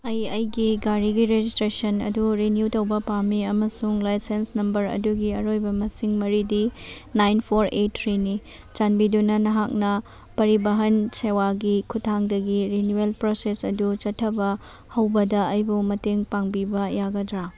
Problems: none marked